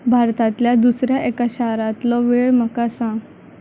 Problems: constant background noise, low volume